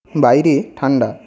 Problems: none marked